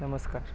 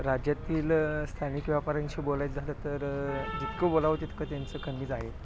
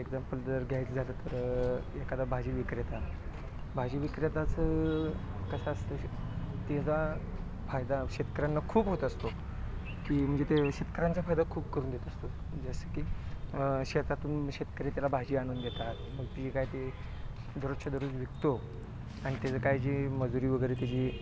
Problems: constant background noise